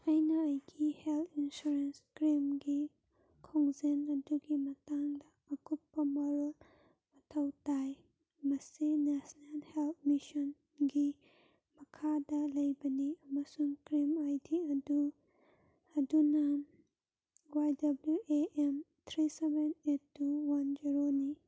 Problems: none marked